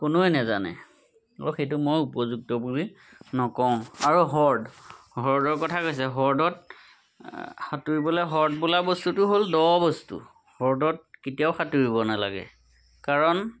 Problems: none marked